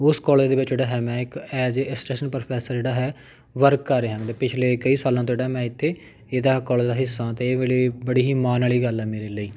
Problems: background sounds at intervals